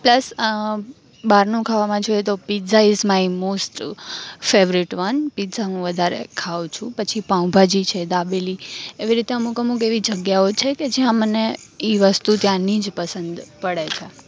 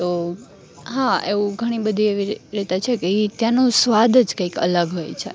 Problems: none marked